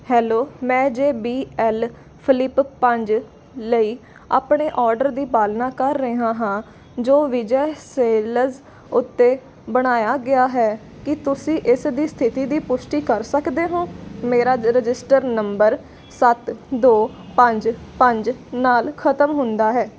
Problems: constant background noise